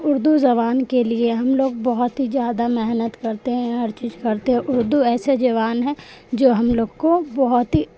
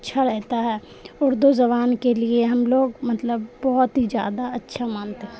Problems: constant background noise